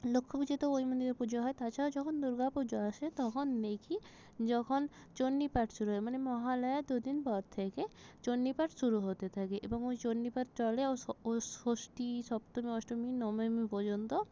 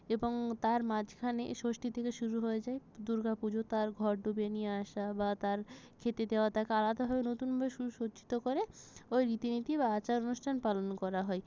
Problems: none marked